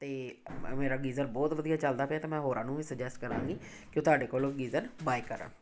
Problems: background sounds at intervals